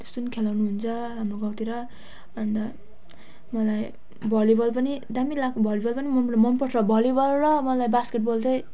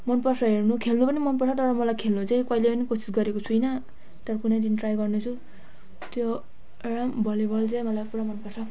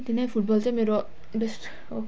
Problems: none marked